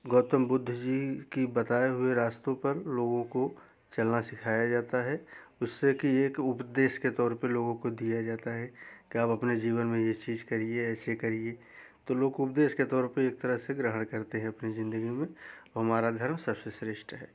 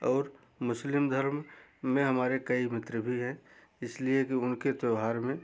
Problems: background sounds at intervals